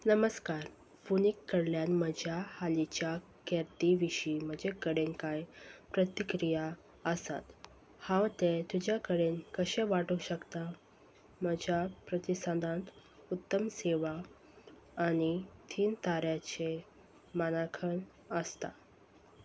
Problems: none marked